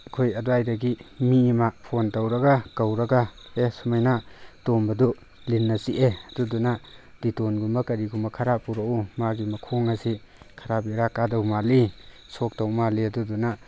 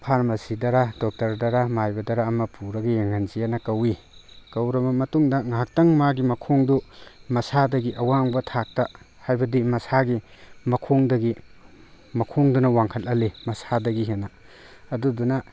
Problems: background sounds at intervals